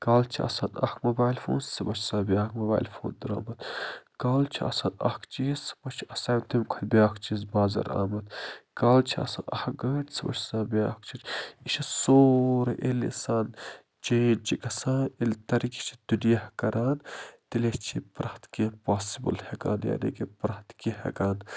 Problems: low volume